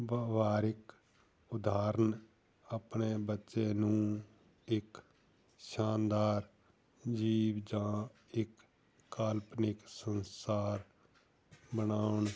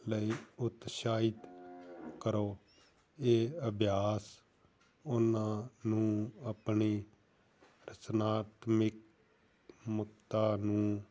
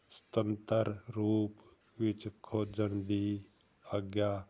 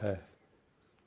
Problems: none marked